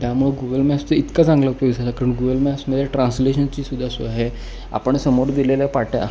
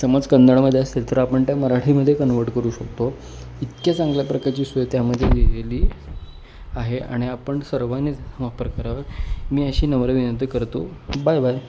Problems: none marked